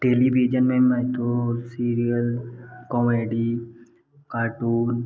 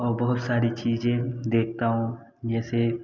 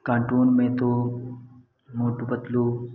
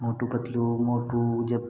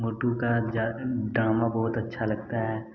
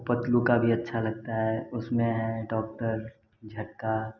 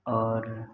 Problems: constant background noise